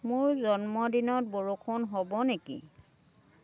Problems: continuous background conversations